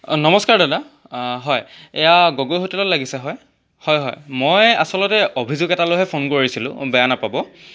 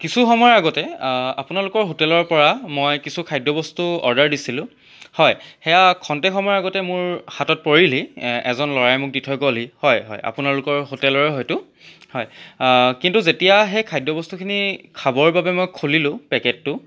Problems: none marked